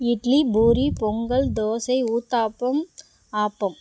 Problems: background sounds at intervals